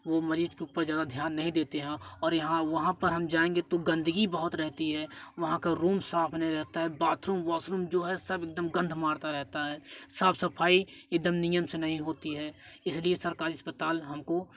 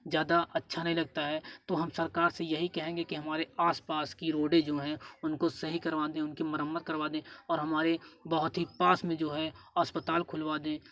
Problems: none marked